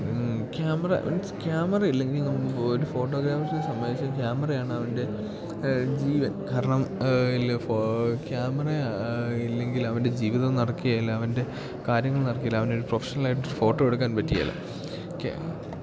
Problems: constant background noise